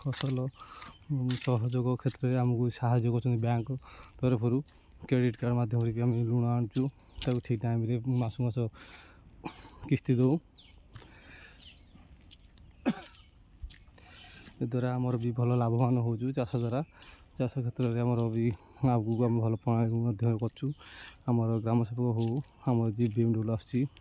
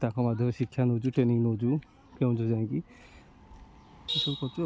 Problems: constant background noise